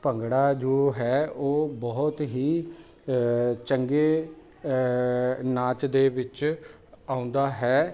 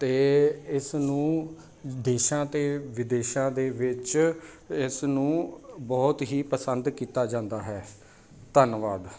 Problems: none marked